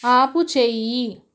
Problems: none marked